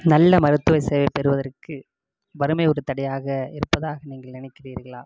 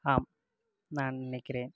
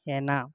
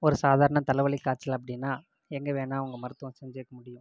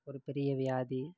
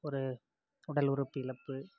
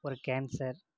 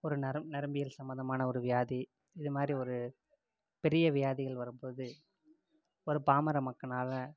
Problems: low volume